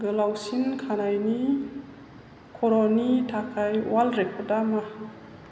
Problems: none marked